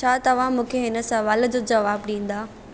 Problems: none marked